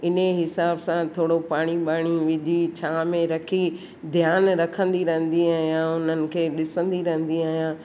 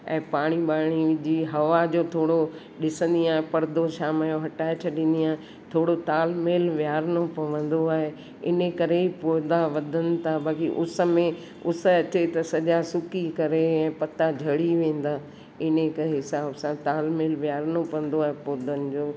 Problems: constant background noise, echo